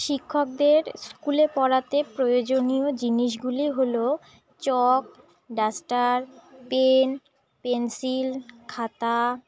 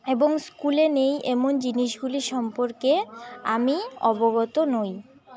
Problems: none marked